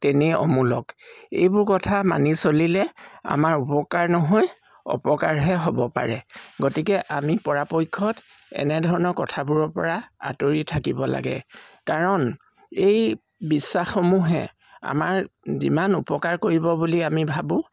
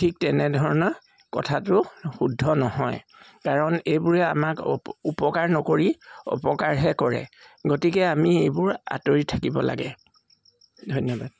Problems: constant background noise